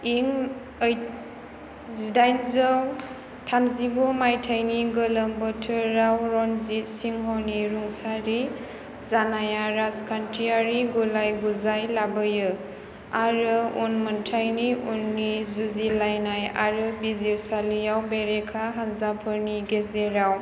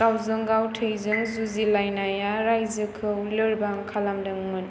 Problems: constant background noise